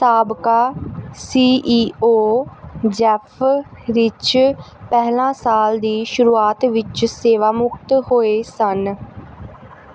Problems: background sounds at intervals